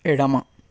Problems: none marked